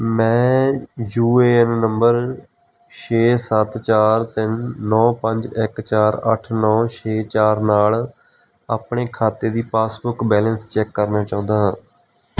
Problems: background sounds at intervals